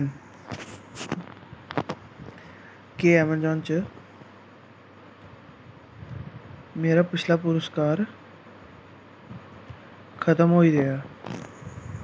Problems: constant background noise